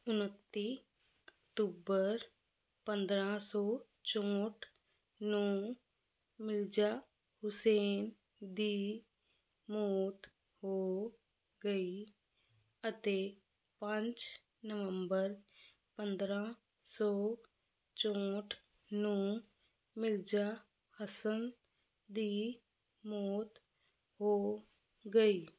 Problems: constant background noise